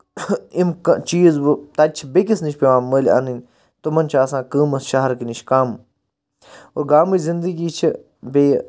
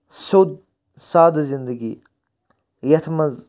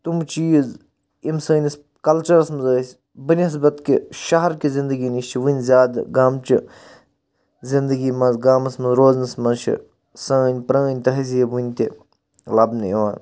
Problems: constant background noise